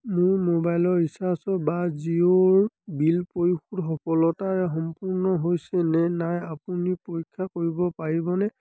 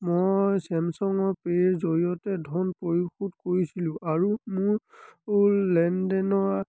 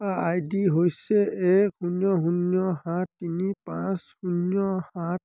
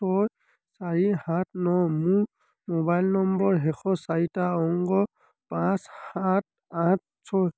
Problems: constant background noise, continuous background conversations